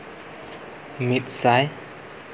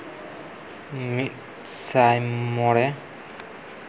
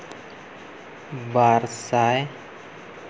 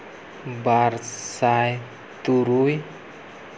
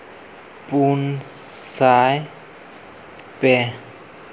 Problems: constant background noise